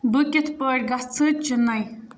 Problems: background sounds at intervals